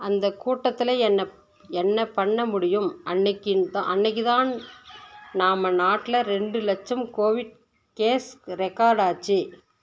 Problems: background sounds at intervals